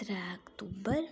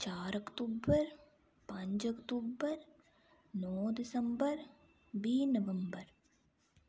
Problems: low volume